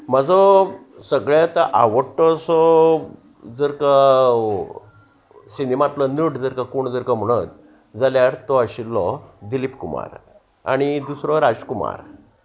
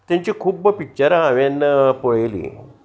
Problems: constant background noise